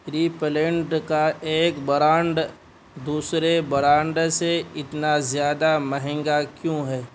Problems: constant background noise